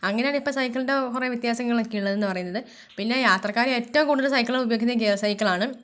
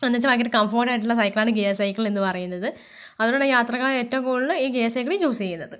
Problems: none marked